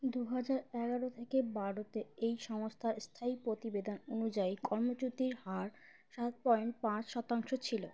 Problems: constant background noise